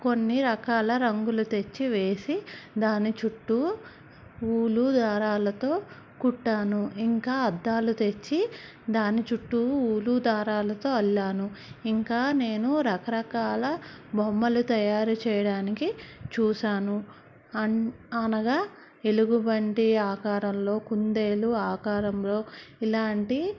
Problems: background sounds at intervals